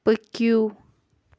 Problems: none marked